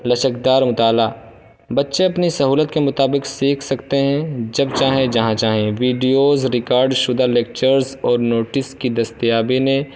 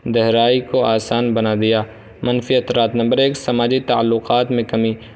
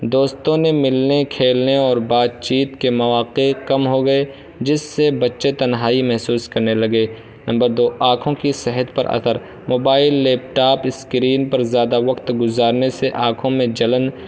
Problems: constant background noise